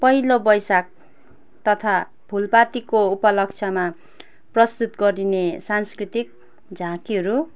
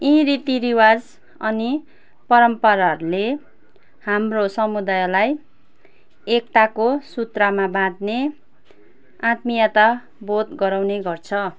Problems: none marked